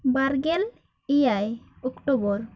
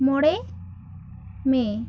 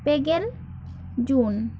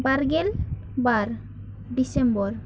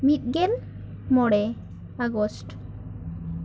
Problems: none marked